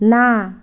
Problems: none marked